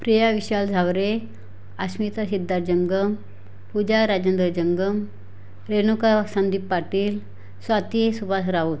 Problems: constant background noise